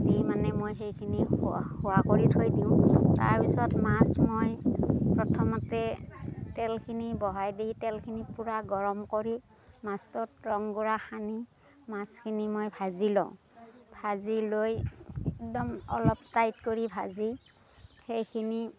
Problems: constant background noise